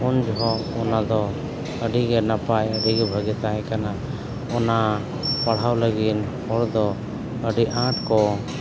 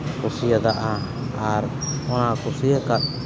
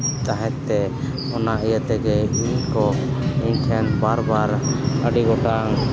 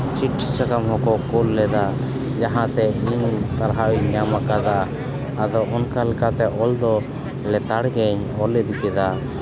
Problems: constant background noise, continuous background conversations